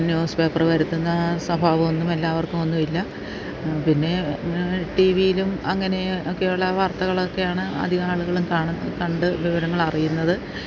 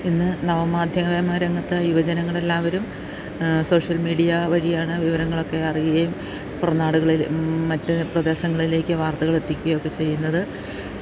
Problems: constant background noise